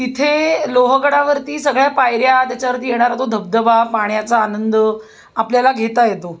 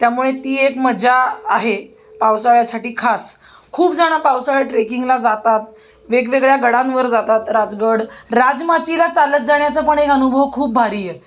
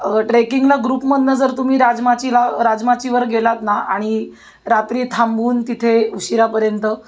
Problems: none marked